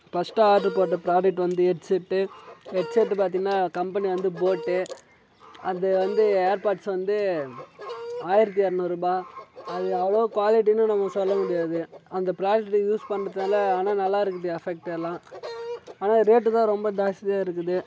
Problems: none marked